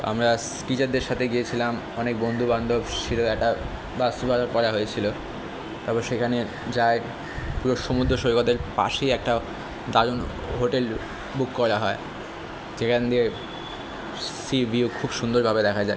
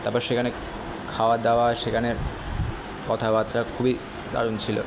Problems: constant background noise